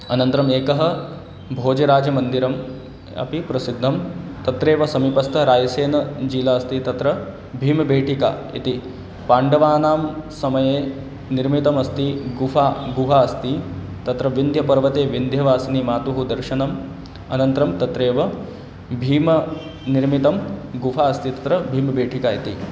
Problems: constant background noise